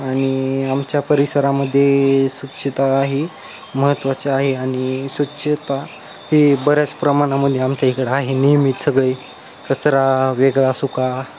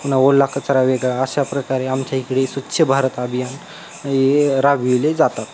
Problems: constant background noise, background conversations at intervals